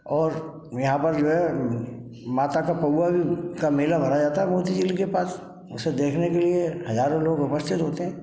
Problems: background sounds at intervals